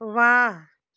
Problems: constant background noise